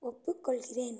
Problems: low volume